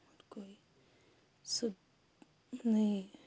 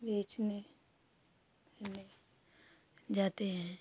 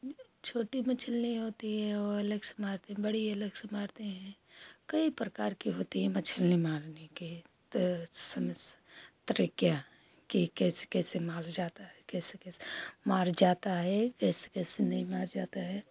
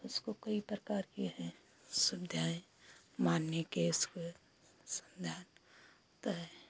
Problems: constant background noise